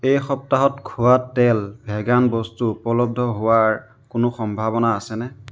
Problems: background sounds at intervals